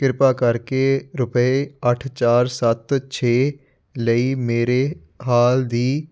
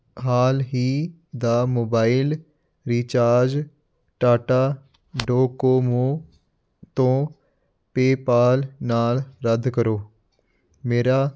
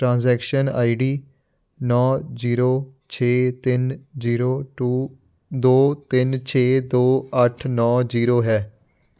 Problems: none marked